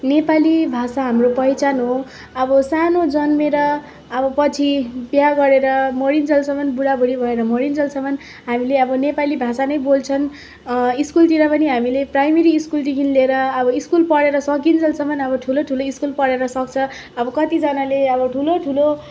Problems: background sounds at intervals